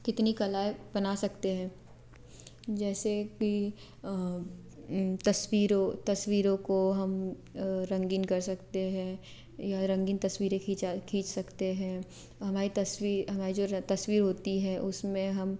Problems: none marked